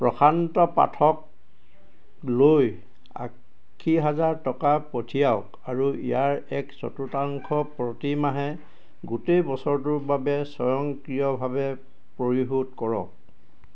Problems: constant background noise